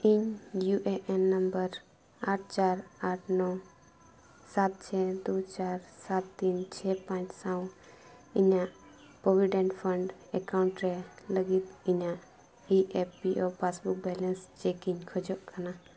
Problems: none marked